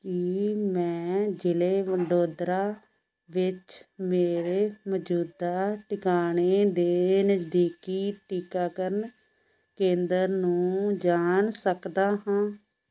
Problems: background sounds at intervals